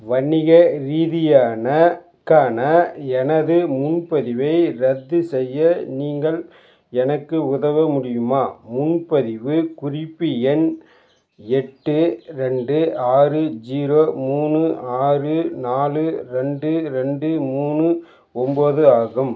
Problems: constant background noise